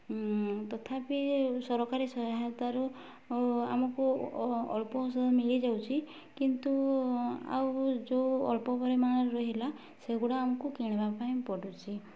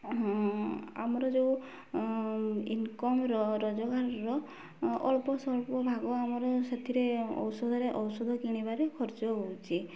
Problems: low volume